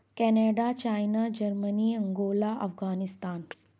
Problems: none marked